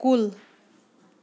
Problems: none marked